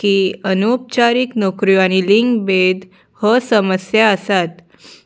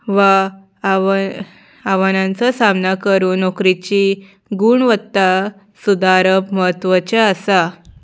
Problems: background sounds at intervals